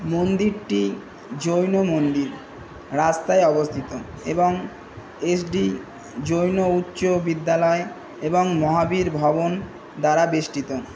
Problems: none marked